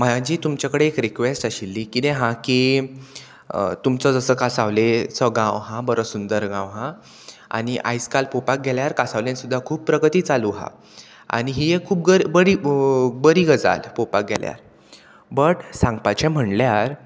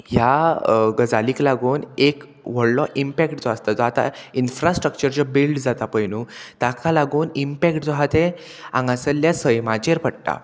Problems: constant background noise